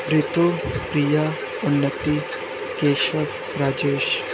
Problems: constant background noise, low volume